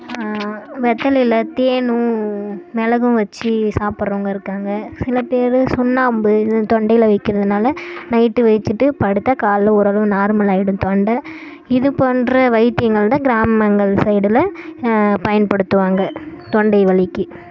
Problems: background sounds at intervals